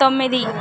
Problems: continuous background conversations